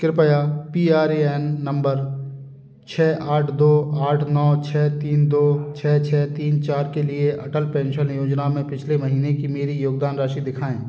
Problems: background sounds at intervals